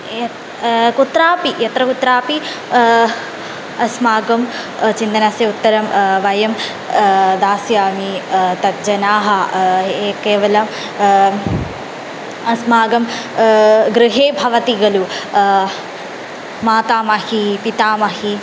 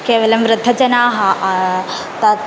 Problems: none marked